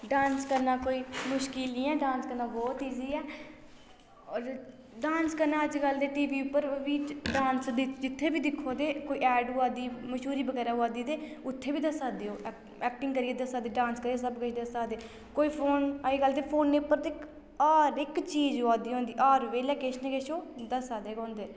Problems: low volume